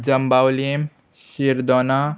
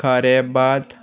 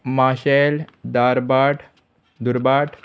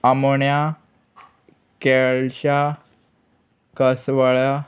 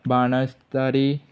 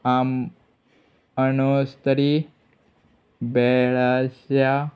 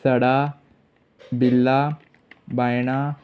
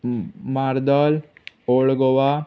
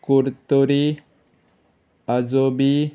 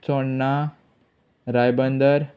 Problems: constant background noise